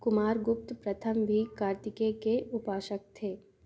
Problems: none marked